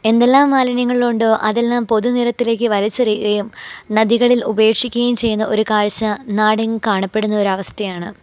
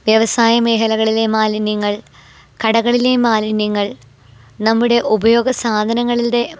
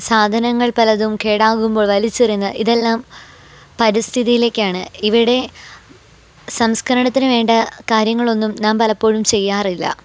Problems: background sounds at intervals